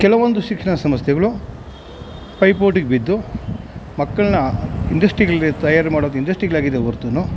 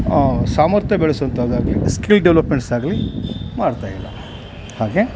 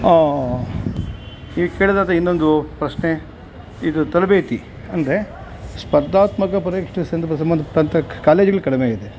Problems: background sounds at intervals